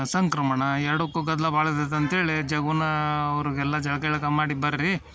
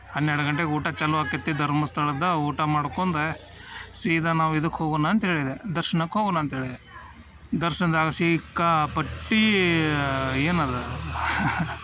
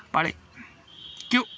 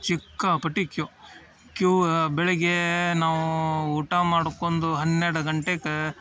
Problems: none marked